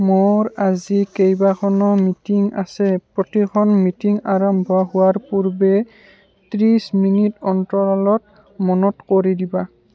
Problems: constant background noise